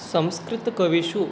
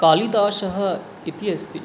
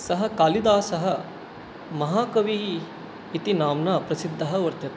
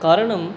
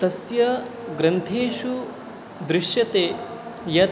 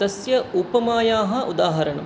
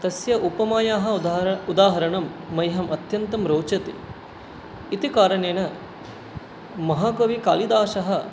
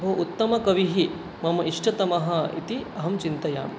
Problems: constant background noise